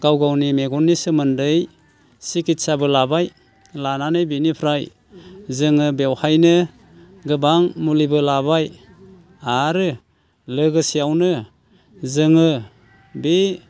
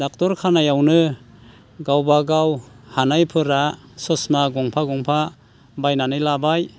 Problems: constant background noise